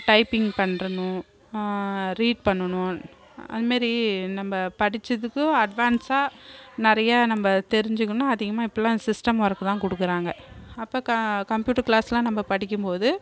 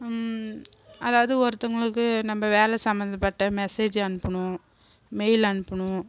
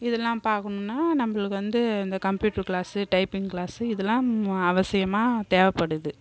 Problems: none marked